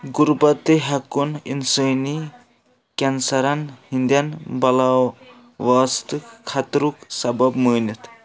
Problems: none marked